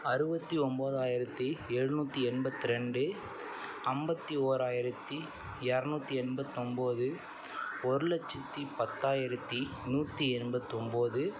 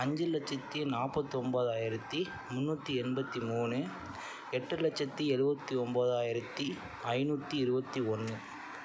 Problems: constant background noise